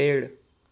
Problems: none marked